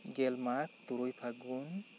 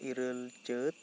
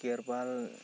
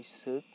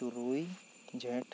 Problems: constant background noise